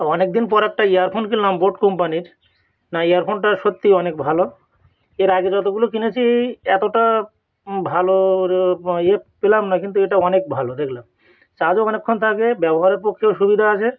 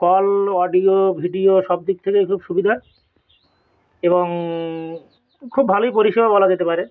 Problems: background sounds at intervals